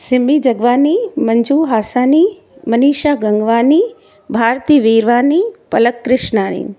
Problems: constant background noise